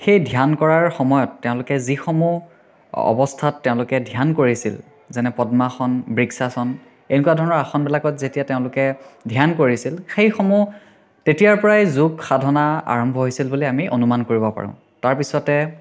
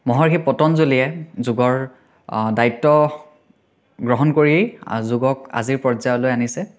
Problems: none marked